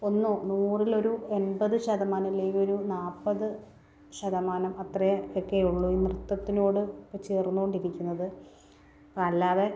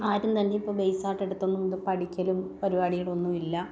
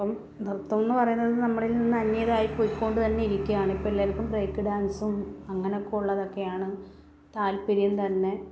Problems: none marked